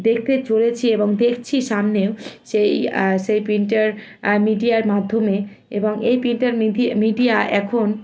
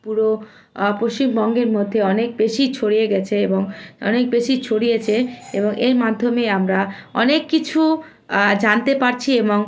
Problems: constant background noise, continuous background conversations